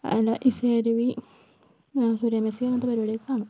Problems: background sounds at intervals, low volume